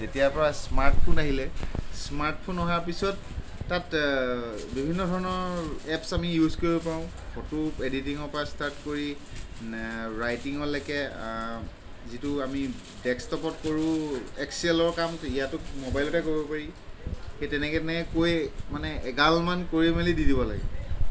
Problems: constant background noise